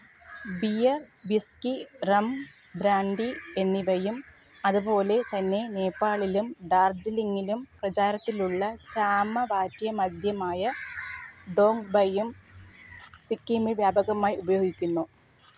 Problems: background sounds at intervals